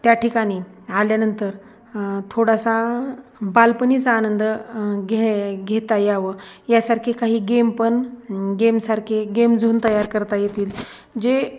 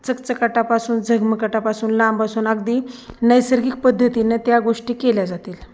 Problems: none marked